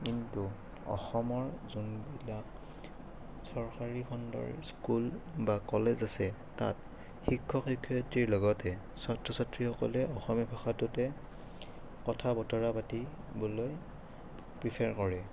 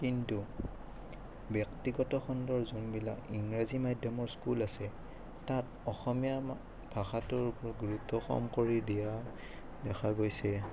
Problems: background sounds at intervals